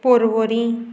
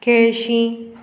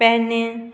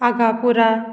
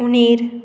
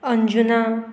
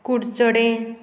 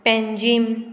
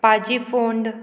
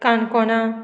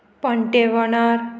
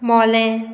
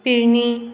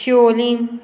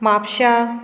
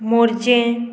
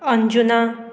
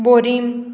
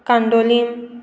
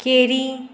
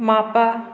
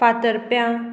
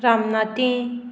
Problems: constant background noise